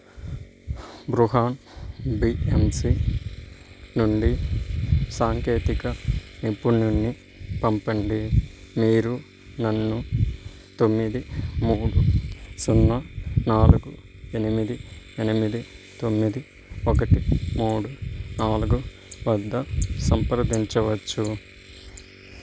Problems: constant background noise